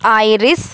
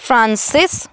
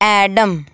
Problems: background sounds at intervals